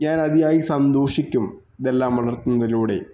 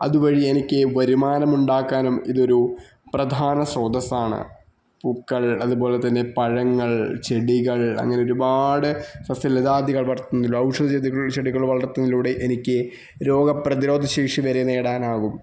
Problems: background sounds at intervals